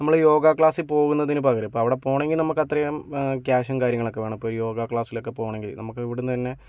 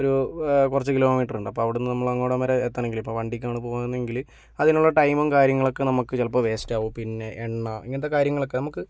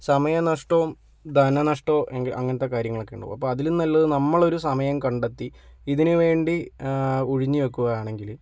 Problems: none marked